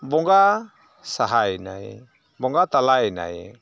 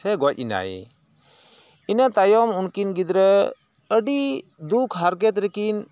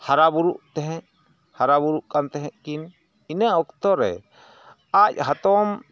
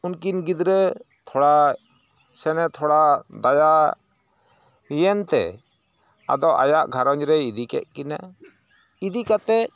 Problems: none marked